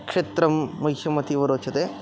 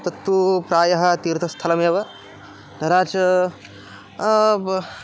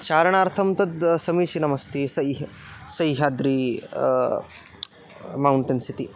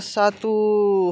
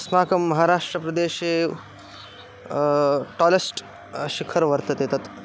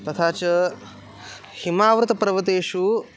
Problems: background sounds at intervals